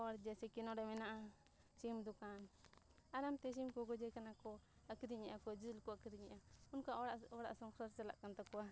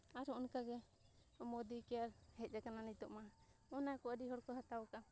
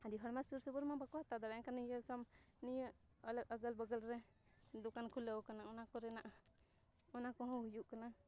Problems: low volume